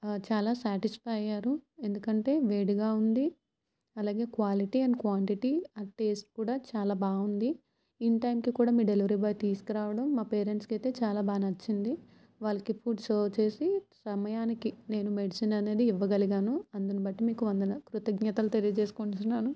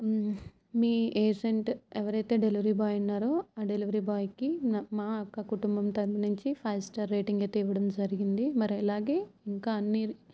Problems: none marked